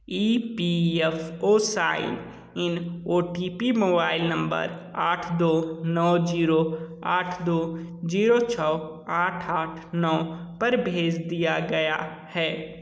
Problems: none marked